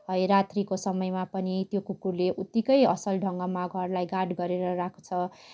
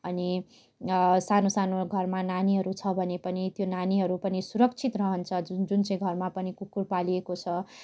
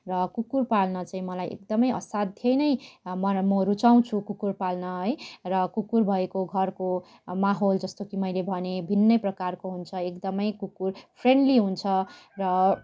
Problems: constant background noise, continuous background conversations